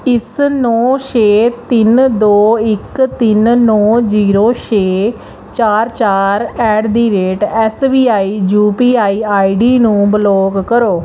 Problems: none marked